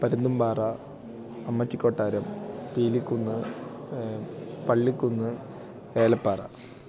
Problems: none marked